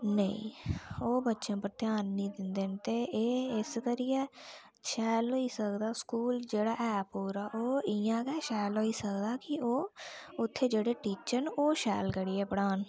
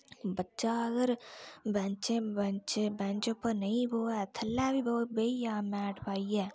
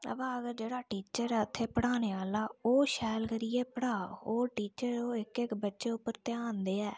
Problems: low volume